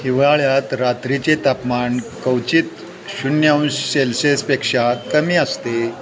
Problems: constant background noise, continuous background conversations